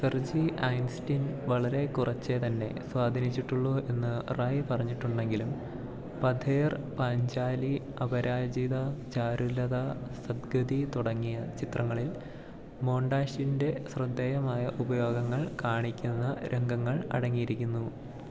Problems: low volume